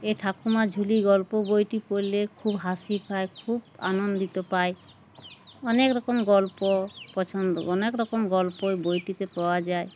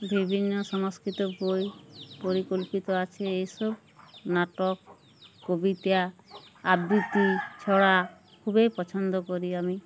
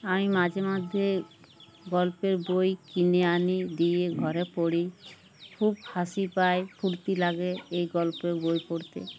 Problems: background sounds at intervals